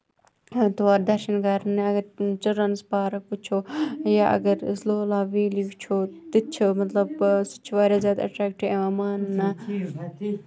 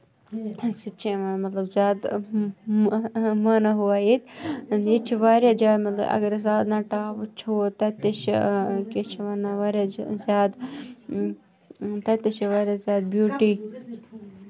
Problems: background sounds at intervals, background conversations at intervals